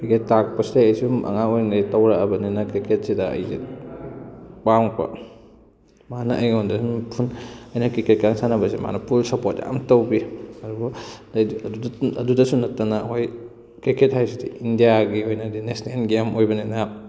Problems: none marked